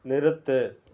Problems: none marked